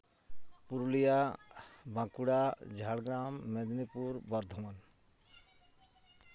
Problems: constant background noise